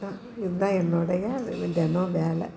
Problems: constant background noise